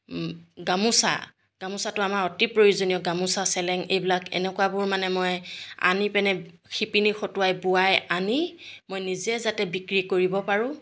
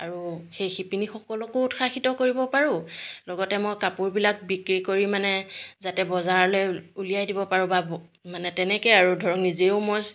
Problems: background sounds at intervals